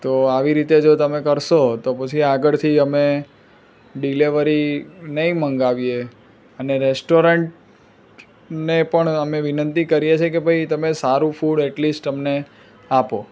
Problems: none marked